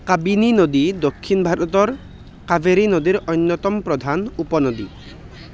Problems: none marked